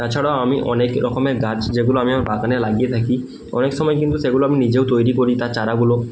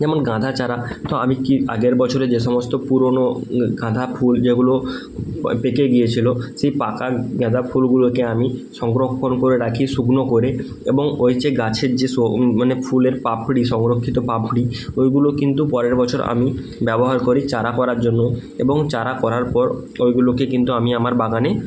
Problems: constant background noise